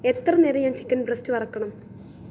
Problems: low volume